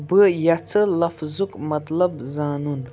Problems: background sounds at intervals